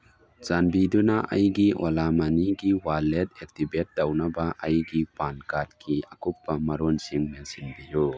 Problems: background sounds at intervals